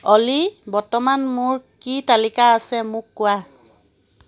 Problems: constant background noise